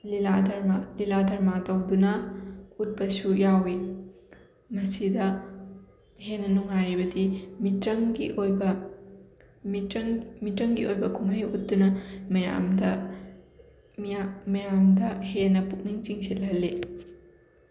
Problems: constant background noise